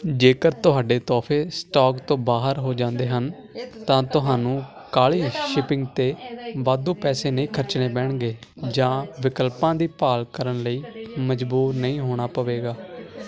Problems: constant background noise